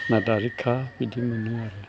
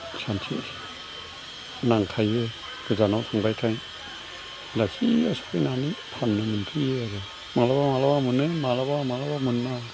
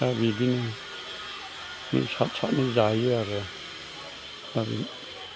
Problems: constant background noise